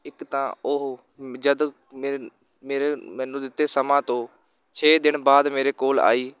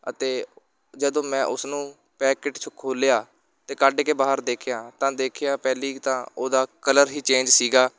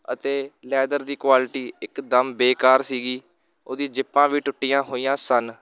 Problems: constant background noise, continuous background conversations